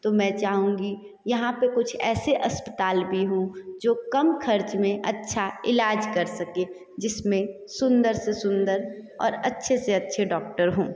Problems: continuous background conversations, echo